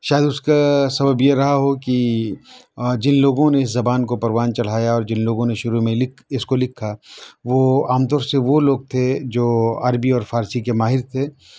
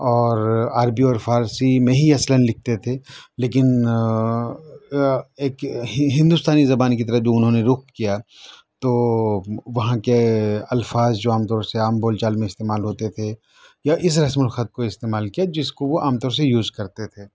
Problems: background sounds at intervals, background conversations at intervals